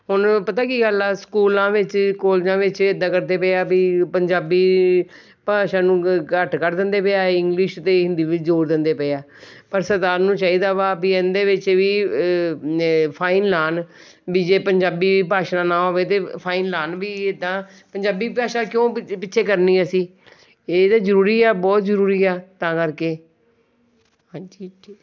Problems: background sounds at intervals